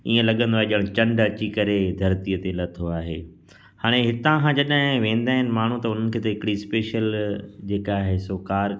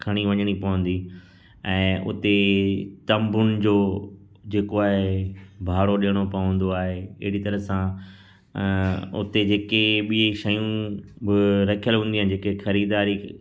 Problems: constant background noise, echo